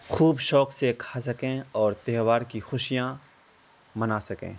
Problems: constant background noise